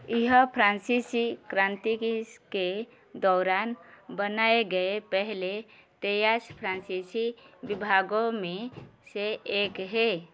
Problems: background sounds at intervals